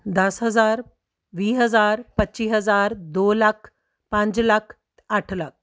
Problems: none marked